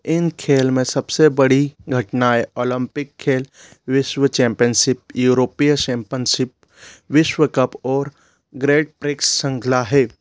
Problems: background sounds at intervals